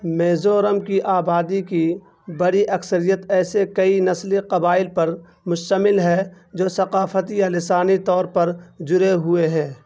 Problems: background sounds at intervals